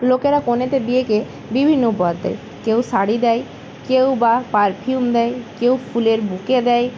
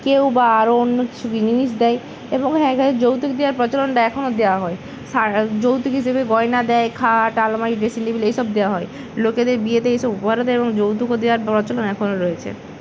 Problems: none marked